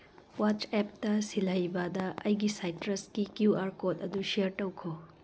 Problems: background sounds at intervals